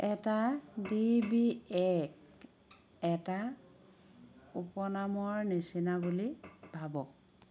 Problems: background sounds at intervals